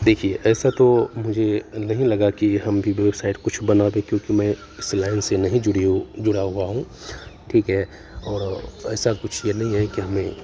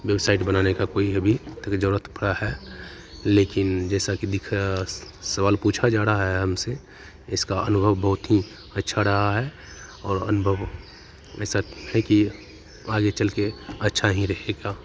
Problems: background sounds at intervals